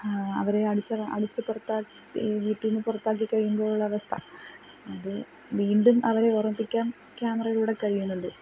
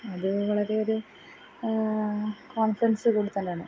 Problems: background sounds at intervals, low volume